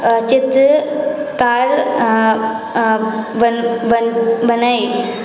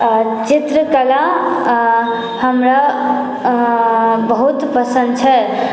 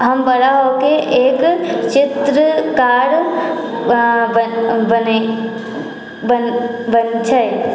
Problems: none marked